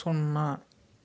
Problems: constant background noise